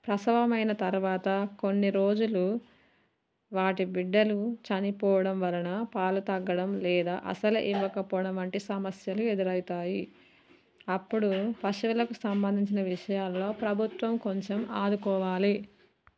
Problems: none marked